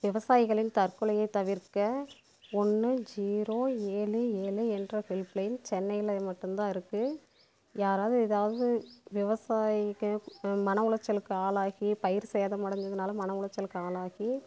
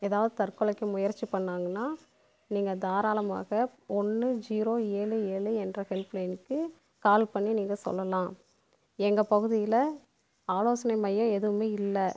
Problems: background sounds at intervals